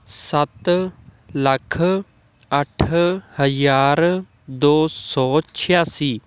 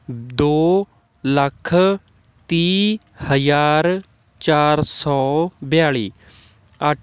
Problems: none marked